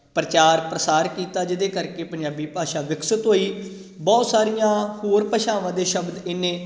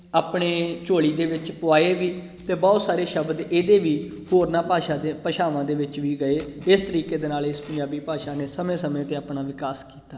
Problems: background sounds at intervals